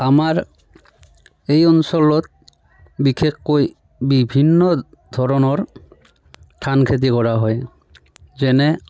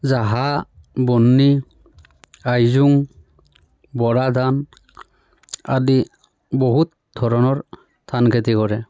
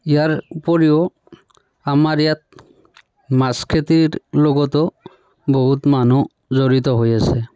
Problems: background sounds at intervals, continuous background conversations